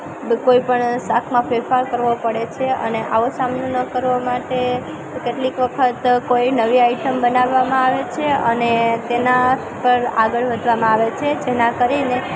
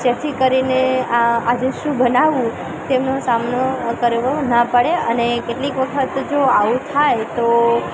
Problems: constant background noise, continuous background conversations